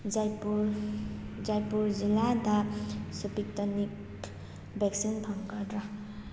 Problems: constant background noise